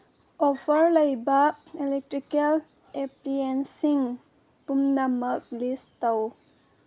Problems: background sounds at intervals